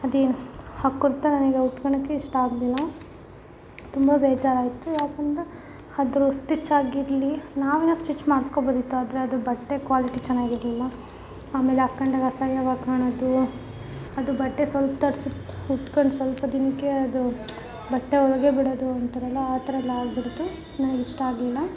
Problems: background sounds at intervals